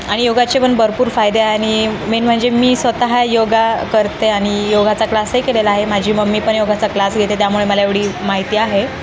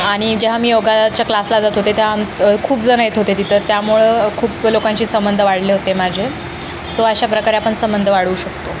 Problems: constant background noise, continuous background conversations